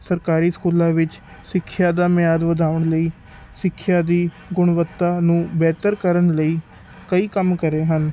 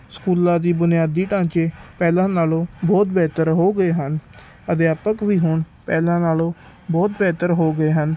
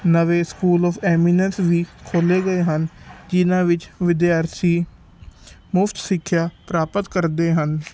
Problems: background sounds at intervals